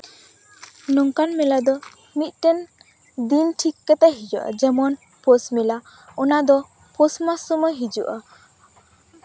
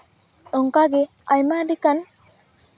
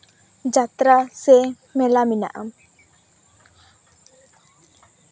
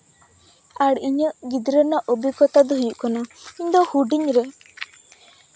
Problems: none marked